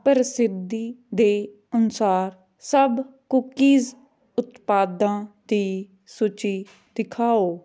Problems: none marked